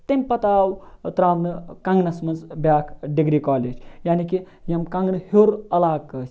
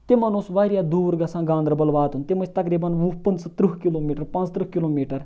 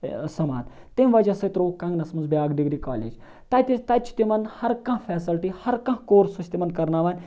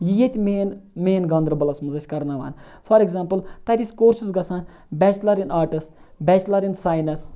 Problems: none marked